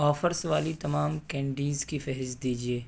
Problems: background sounds at intervals